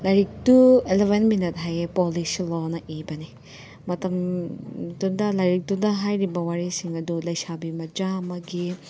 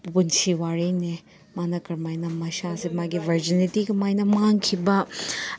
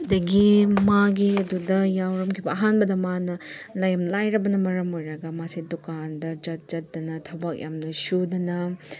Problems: none marked